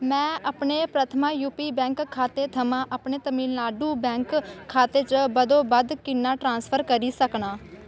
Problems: constant background noise